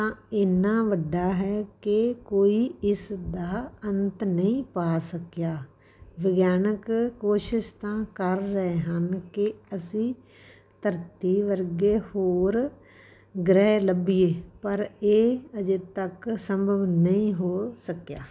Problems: background sounds at intervals